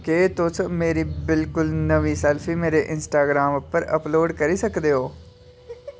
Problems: background sounds at intervals